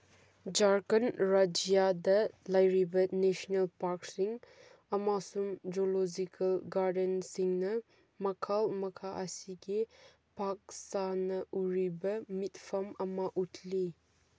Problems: none marked